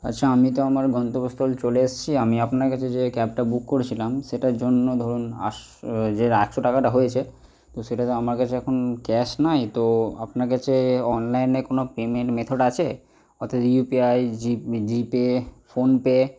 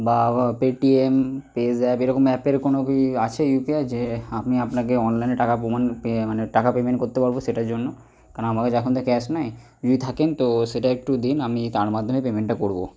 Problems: none marked